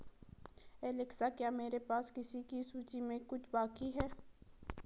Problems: low volume